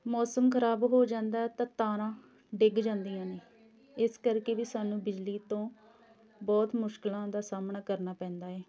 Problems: continuous background conversations